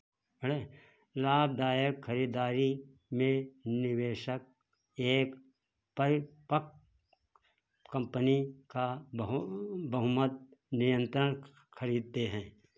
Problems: none marked